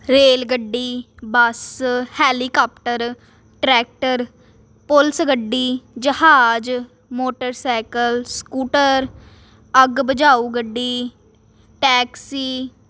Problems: constant background noise